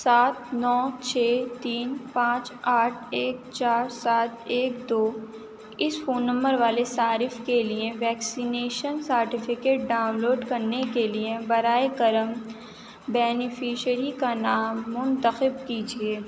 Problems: constant background noise